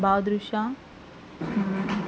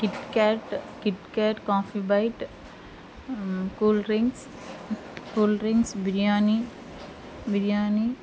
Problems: constant background noise